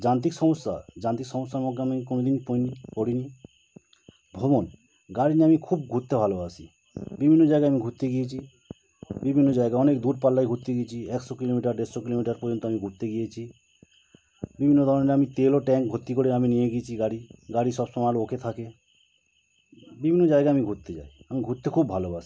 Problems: constant background noise